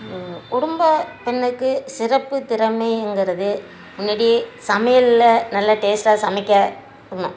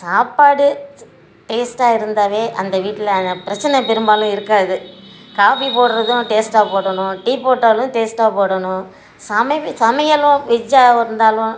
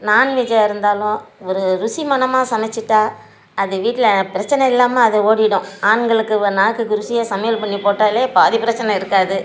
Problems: background sounds at intervals